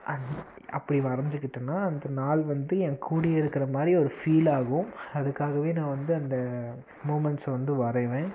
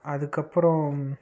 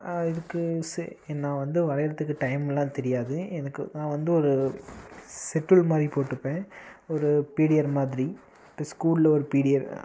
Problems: constant background noise